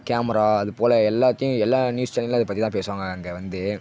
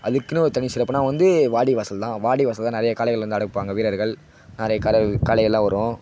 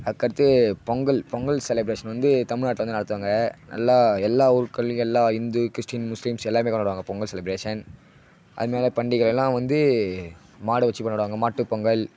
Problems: none marked